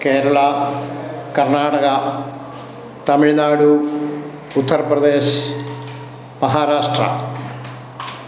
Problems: background sounds at intervals